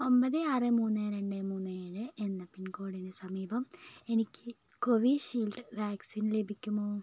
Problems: low volume